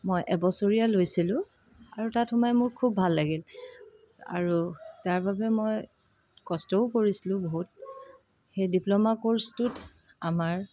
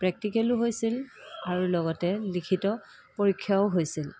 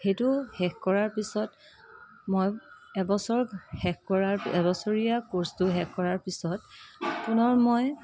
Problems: constant background noise, background conversations at intervals